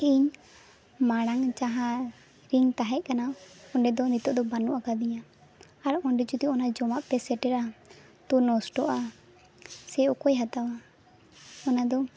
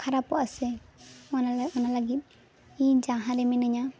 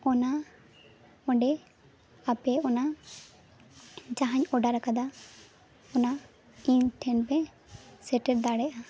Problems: constant background noise